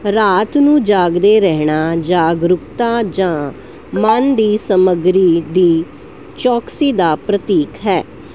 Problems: background sounds at intervals